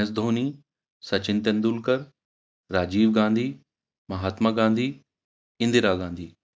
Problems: background sounds at intervals